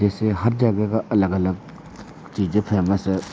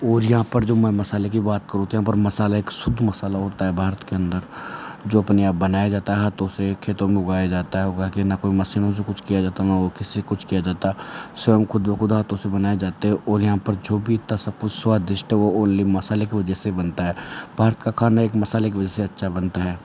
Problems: none marked